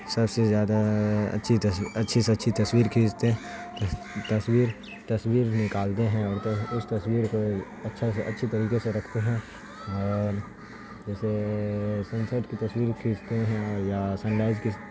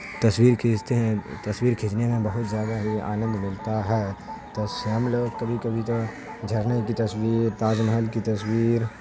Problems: constant background noise